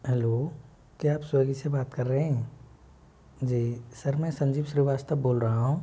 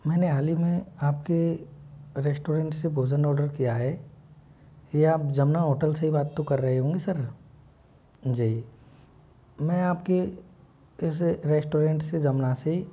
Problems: constant background noise